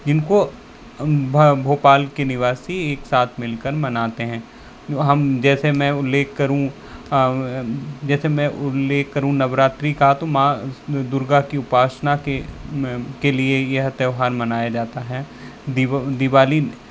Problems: constant background noise